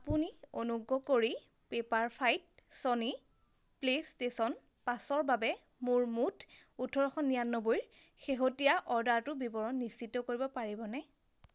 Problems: constant background noise